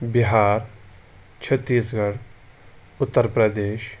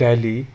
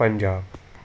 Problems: background sounds at intervals